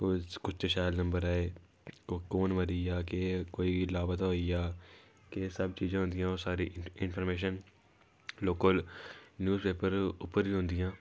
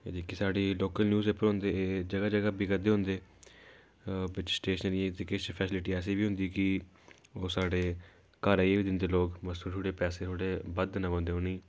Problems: background sounds at intervals